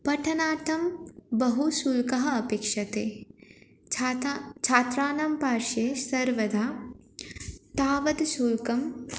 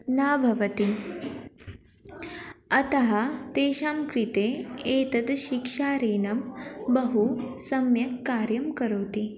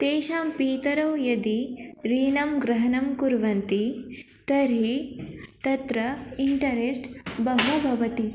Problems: constant background noise, background conversations at intervals